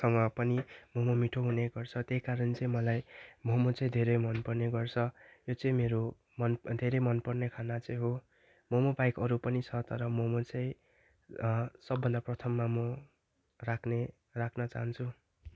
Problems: background sounds at intervals